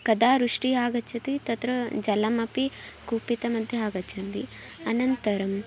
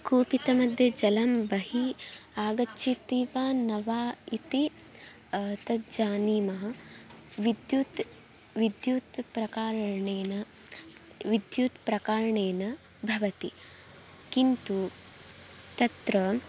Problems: low volume